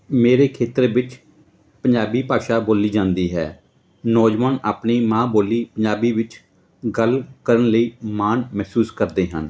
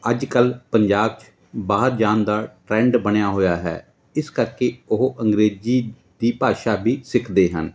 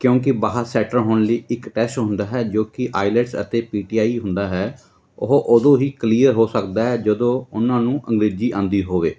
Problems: continuous background conversations